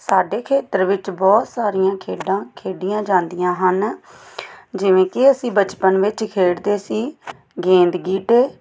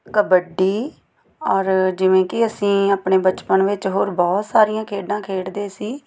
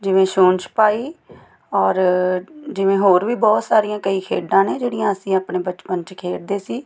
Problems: background sounds at intervals